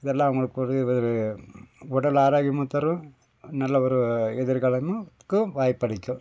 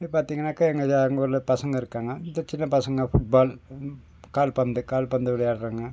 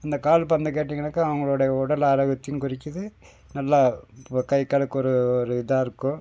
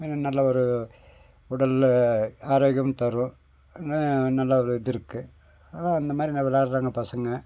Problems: none marked